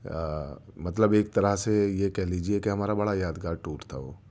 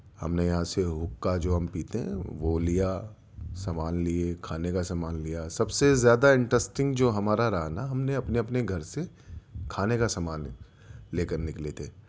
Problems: none marked